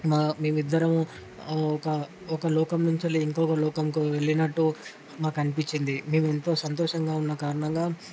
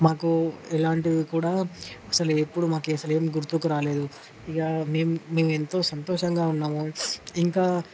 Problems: constant background noise